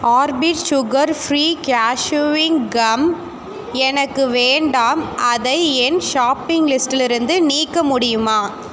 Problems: constant background noise